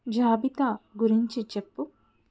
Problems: none marked